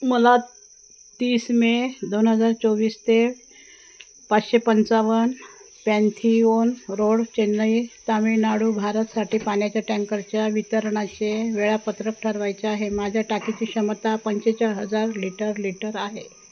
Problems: none marked